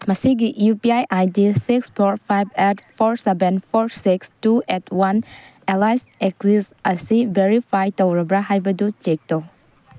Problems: background sounds at intervals